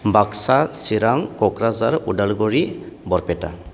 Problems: constant background noise